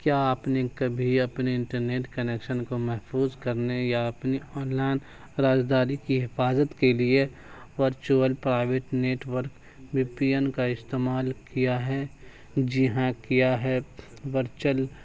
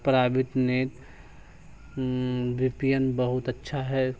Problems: constant background noise